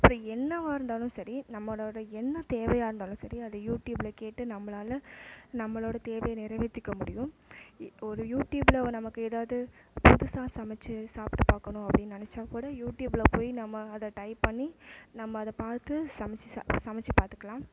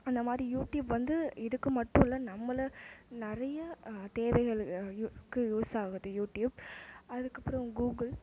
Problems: low volume